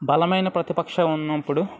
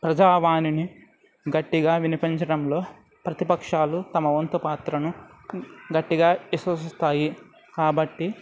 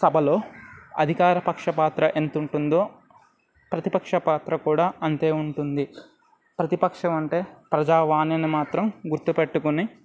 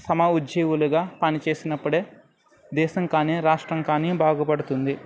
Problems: none marked